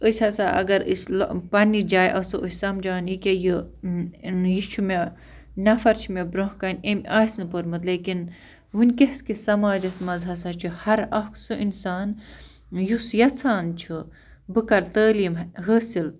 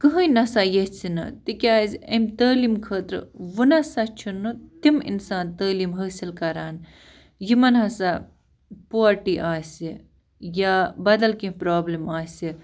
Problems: constant background noise